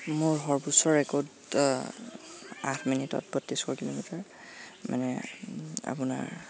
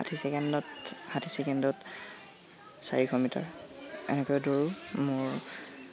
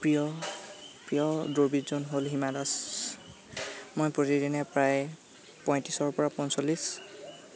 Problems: constant background noise